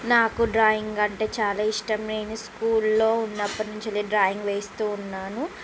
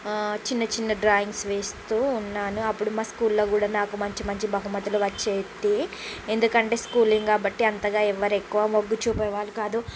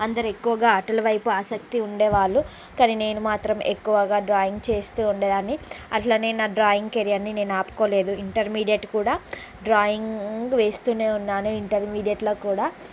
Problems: constant background noise